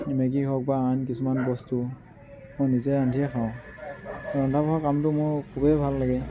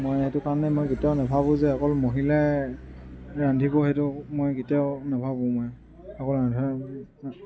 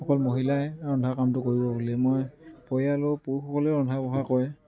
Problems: none marked